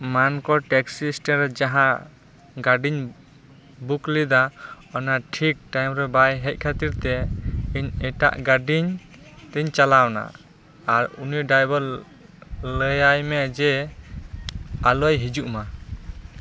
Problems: constant background noise, background conversations at intervals